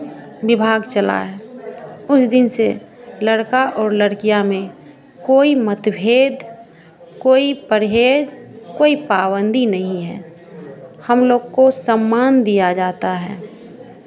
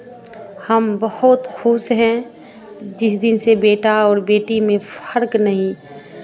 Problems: none marked